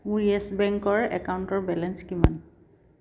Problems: none marked